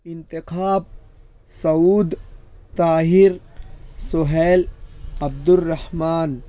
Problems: none marked